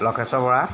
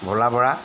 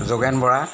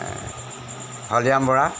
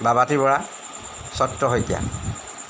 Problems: constant background noise